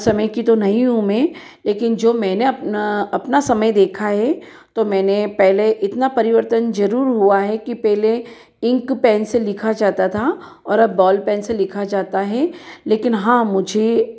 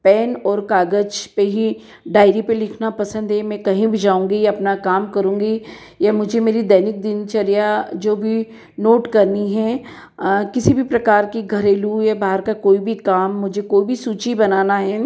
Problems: background sounds at intervals, echo